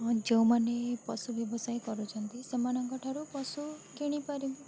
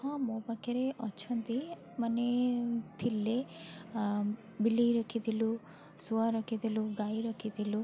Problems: constant background noise, continuous background conversations